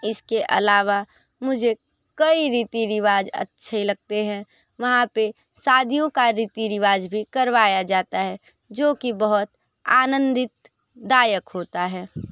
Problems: none marked